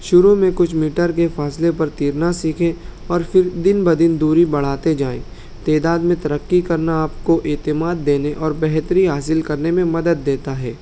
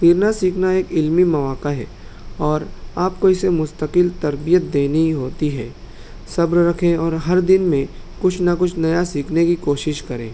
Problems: constant background noise